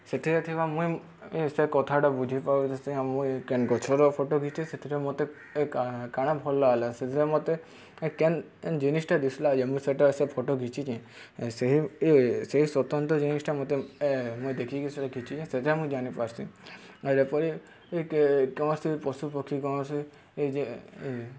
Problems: none marked